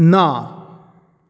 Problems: none marked